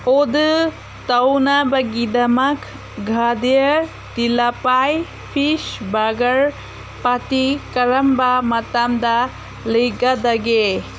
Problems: constant background noise